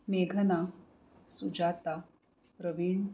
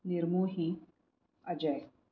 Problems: low volume